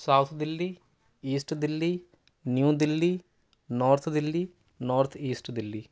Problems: none marked